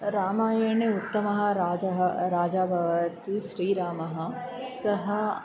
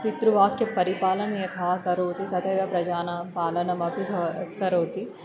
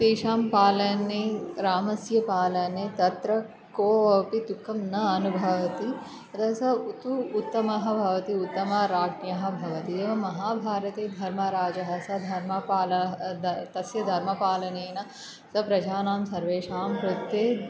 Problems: background sounds at intervals